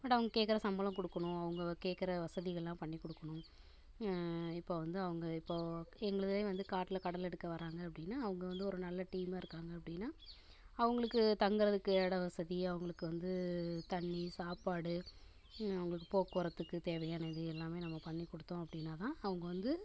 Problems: constant background noise